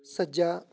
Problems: background conversations at intervals